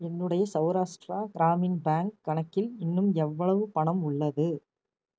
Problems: none marked